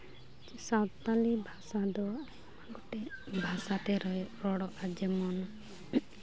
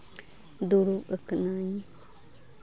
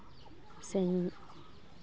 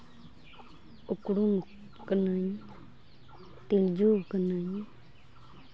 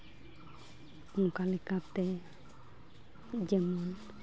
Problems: background sounds at intervals